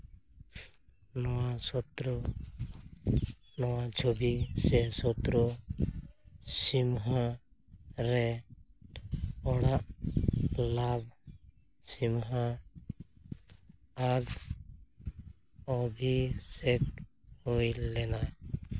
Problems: low volume